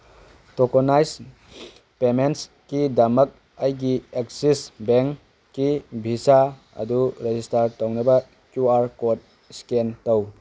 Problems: background sounds at intervals